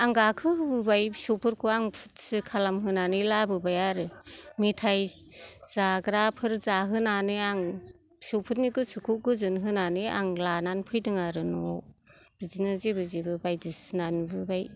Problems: none marked